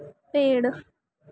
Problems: none marked